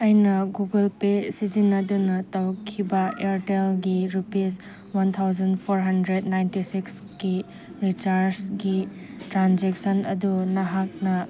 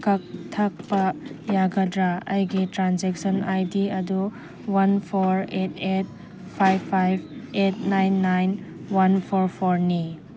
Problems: background sounds at intervals